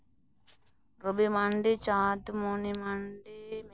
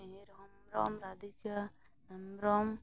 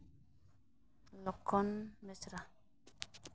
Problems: background sounds at intervals, low volume